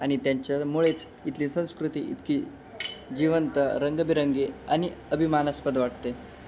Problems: constant background noise, background conversations at intervals